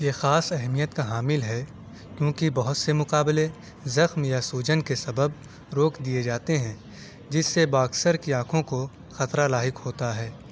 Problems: none marked